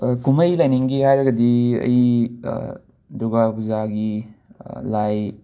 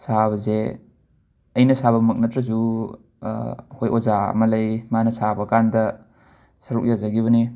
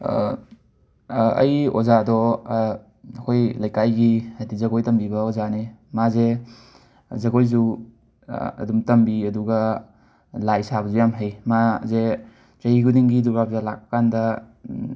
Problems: background sounds at intervals